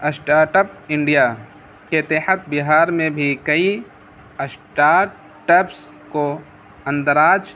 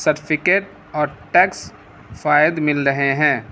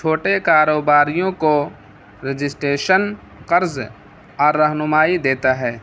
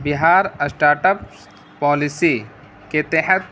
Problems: constant background noise